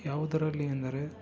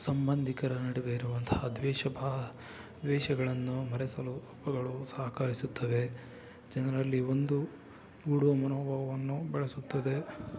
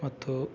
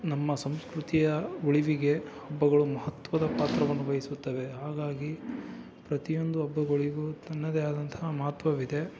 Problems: low volume